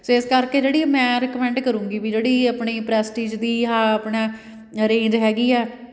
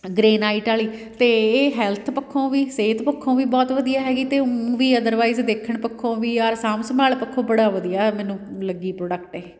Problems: background sounds at intervals